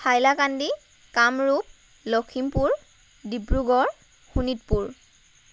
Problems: constant background noise